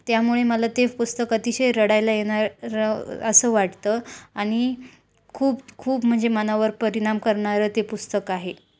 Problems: background sounds at intervals